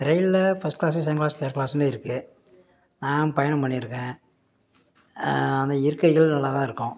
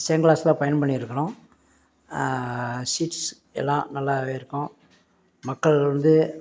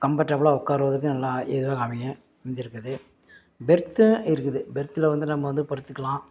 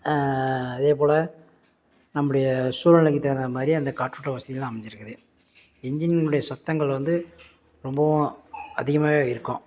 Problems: background sounds at intervals